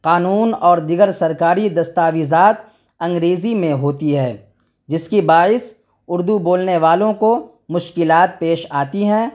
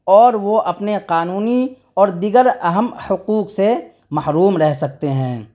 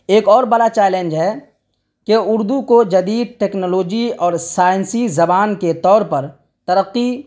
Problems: none marked